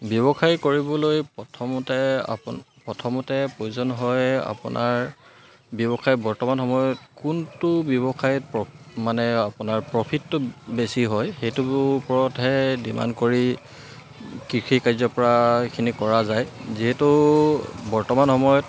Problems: constant background noise